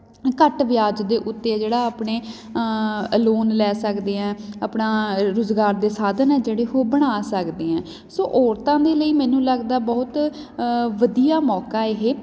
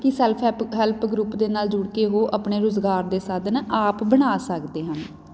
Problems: background sounds at intervals